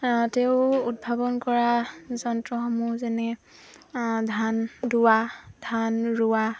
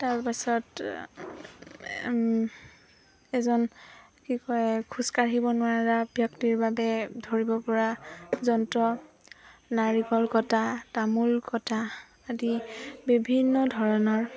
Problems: constant background noise, background conversations at intervals